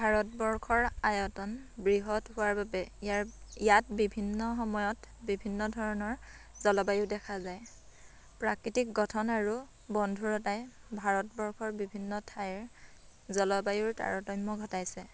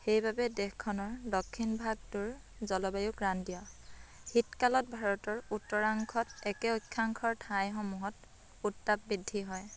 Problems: none marked